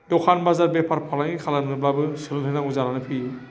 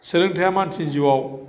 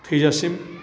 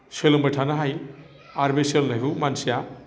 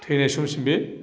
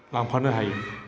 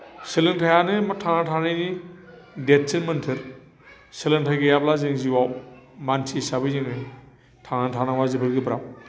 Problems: constant background noise